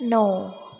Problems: low volume